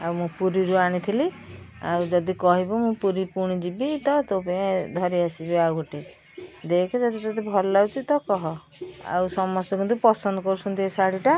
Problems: constant background noise